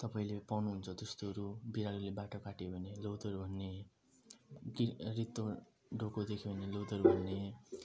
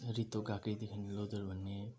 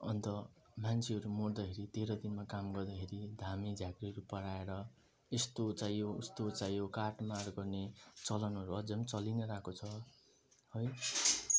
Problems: low volume